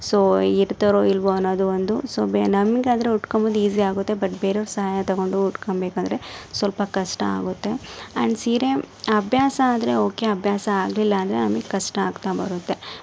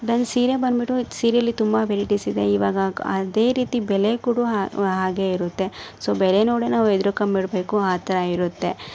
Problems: background sounds at intervals